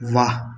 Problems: constant background noise, echo